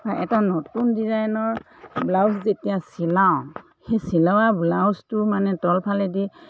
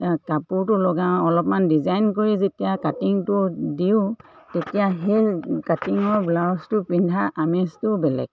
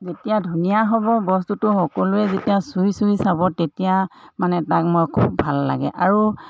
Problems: none marked